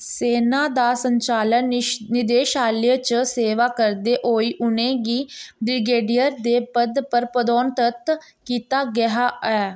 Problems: none marked